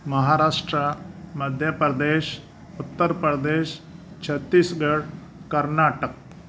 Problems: none marked